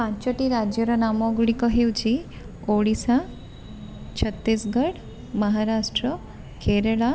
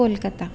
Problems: background sounds at intervals